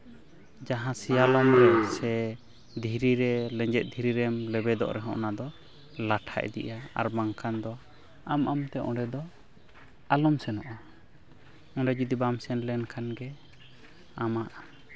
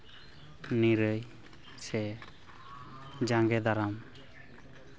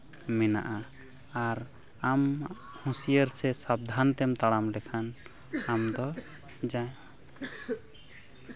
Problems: constant background noise